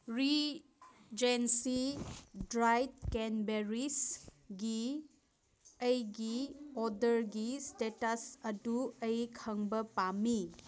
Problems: background sounds at intervals